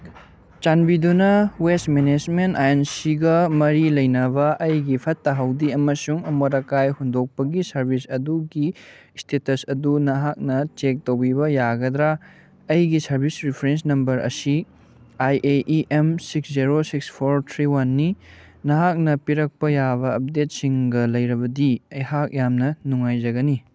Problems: none marked